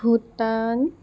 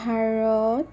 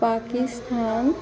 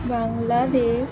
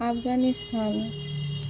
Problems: constant background noise, background conversations at intervals